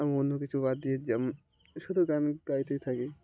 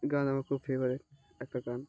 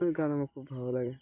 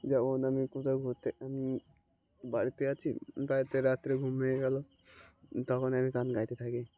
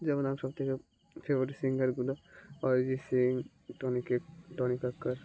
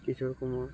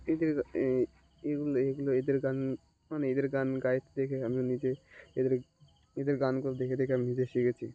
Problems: background sounds at intervals